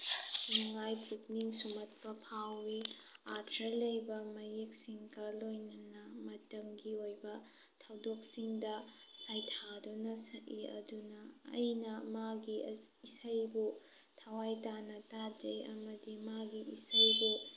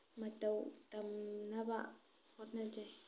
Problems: background sounds at intervals